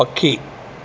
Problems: constant background noise